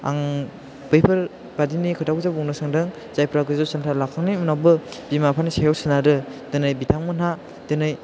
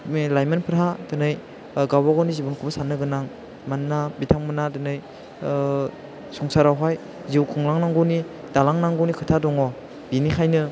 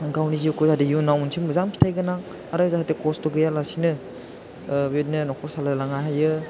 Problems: background sounds at intervals